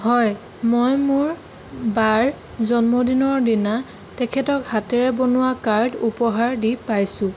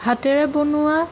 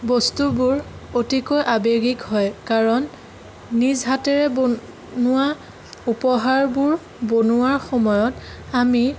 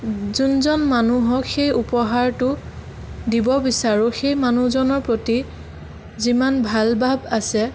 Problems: none marked